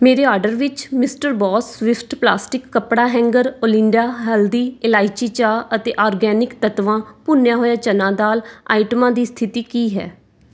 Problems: background sounds at intervals